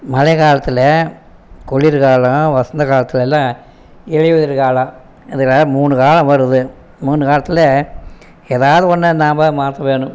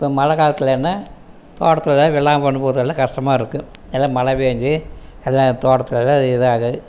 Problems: none marked